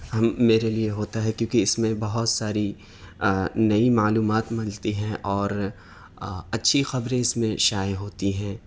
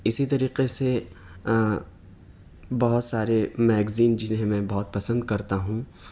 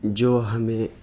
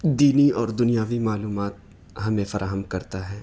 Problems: none marked